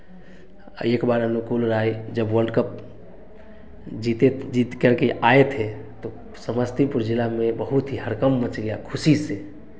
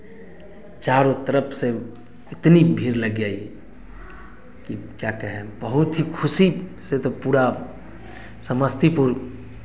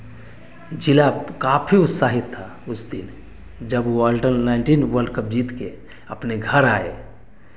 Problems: constant background noise